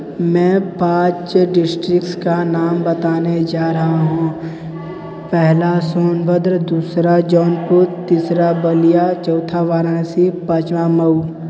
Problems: none marked